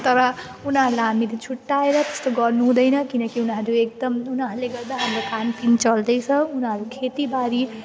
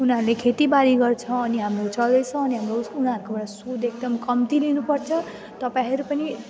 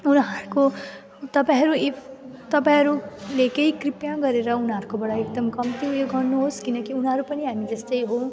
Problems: constant background noise